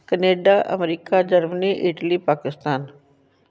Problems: none marked